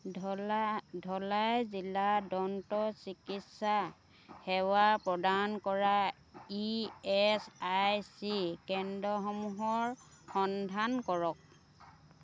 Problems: constant background noise